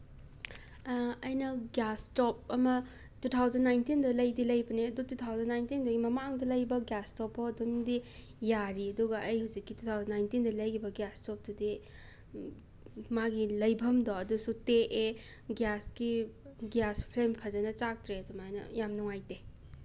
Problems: none marked